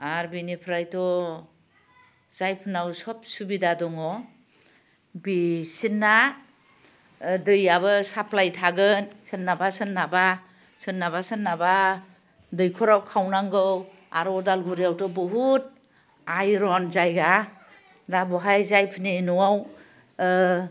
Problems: constant background noise